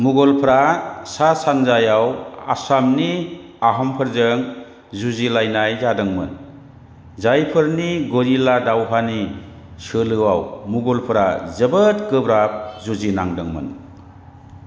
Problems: constant background noise